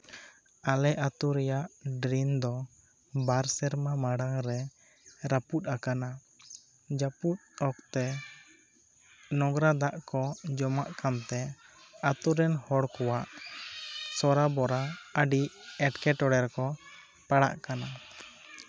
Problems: background conversations at intervals